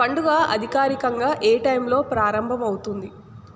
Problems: constant background noise